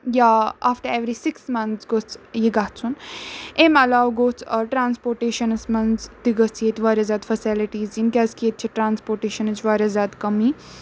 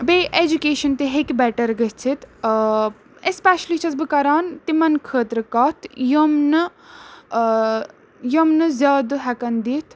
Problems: none marked